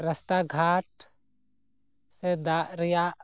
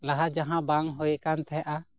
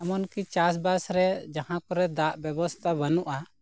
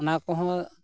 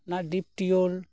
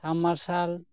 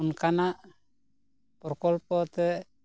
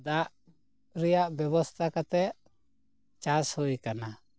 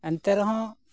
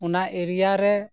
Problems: constant background noise